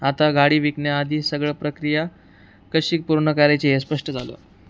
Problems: none marked